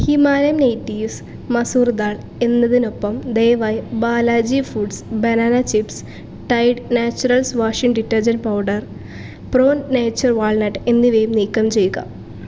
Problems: constant background noise